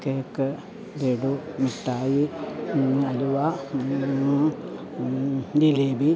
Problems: low volume